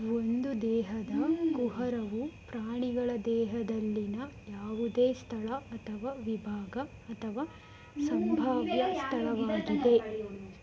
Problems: constant background noise, background conversations at intervals